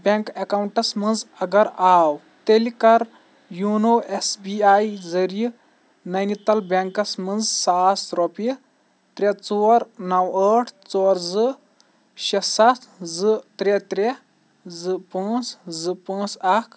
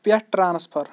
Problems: constant background noise